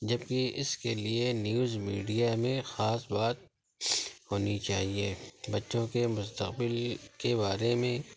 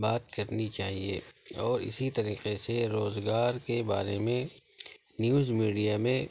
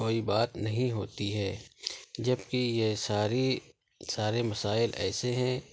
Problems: constant background noise, low volume